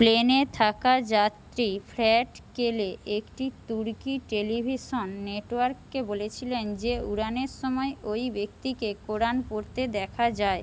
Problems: constant background noise